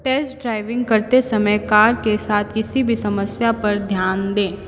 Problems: none marked